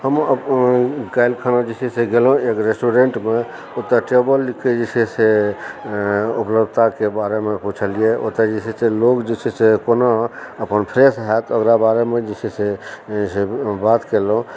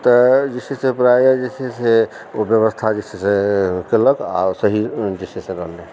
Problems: background sounds at intervals, background conversations at intervals